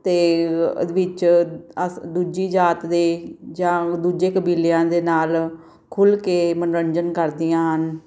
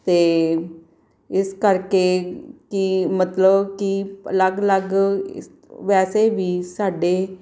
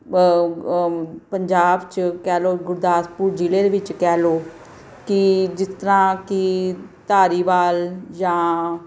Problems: none marked